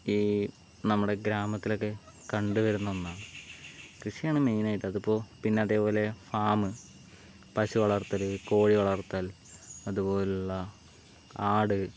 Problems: background sounds at intervals, low volume